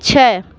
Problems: none marked